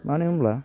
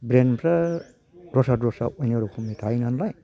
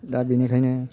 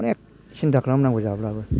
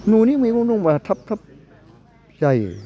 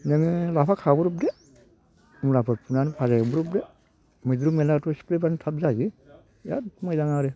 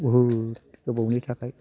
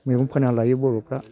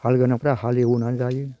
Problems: low volume